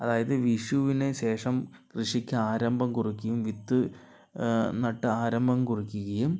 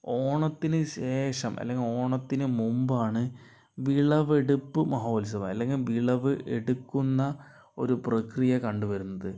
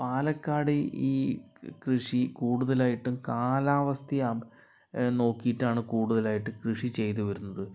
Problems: none marked